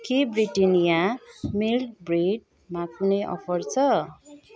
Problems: none marked